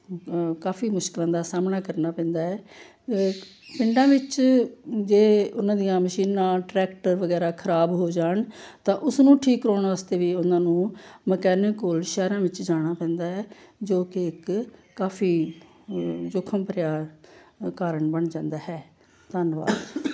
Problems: background sounds at intervals